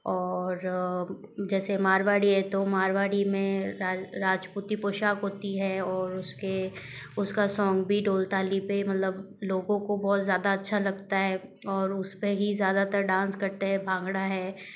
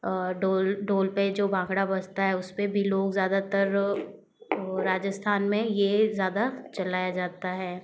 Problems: none marked